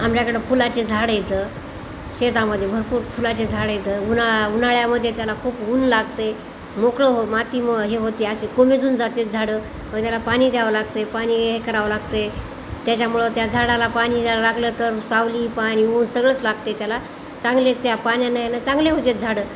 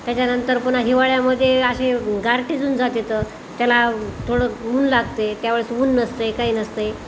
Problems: none marked